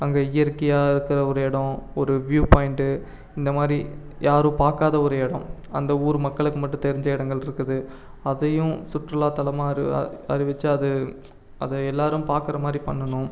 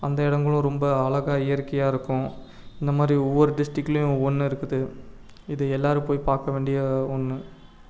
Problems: none marked